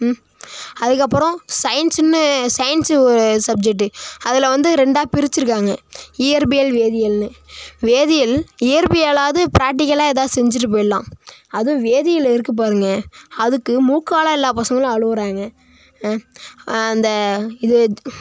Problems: background sounds at intervals